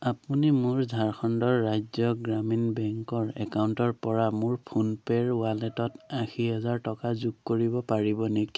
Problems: background sounds at intervals